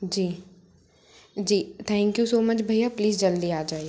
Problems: constant background noise